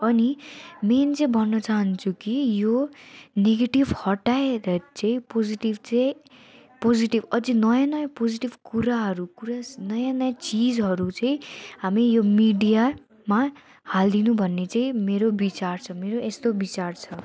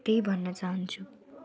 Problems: constant background noise